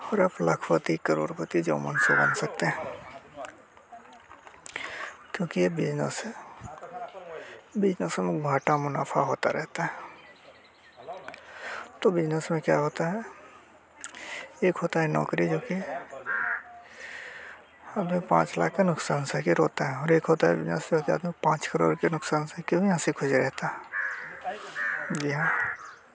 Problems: constant background noise